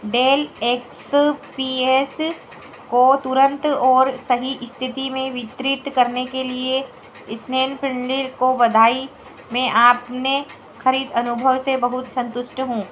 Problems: constant background noise